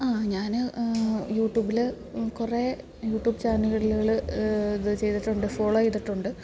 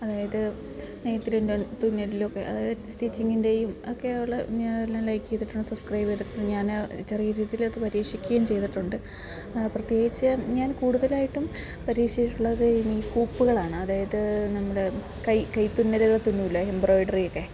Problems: none marked